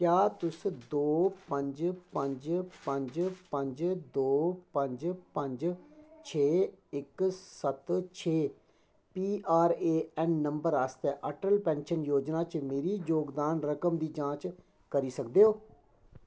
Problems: none marked